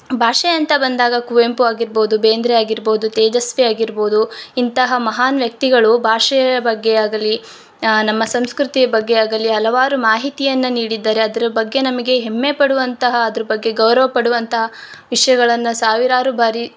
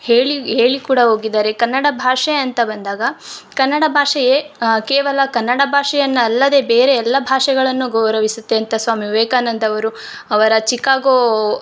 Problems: none marked